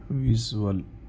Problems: constant background noise, low volume